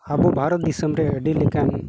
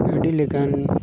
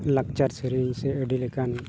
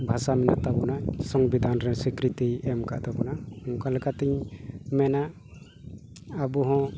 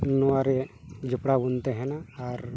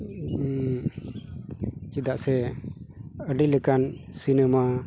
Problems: constant background noise